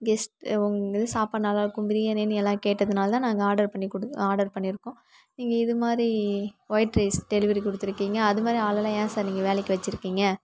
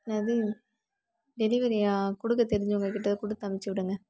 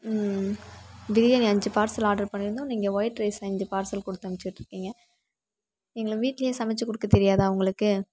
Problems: background sounds at intervals